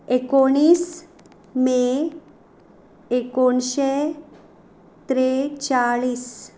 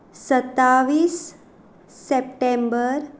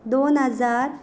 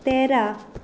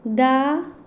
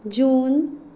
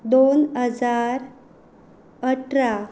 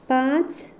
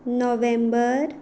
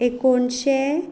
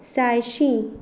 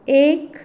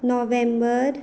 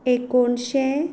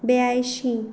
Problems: background sounds at intervals